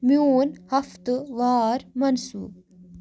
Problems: none marked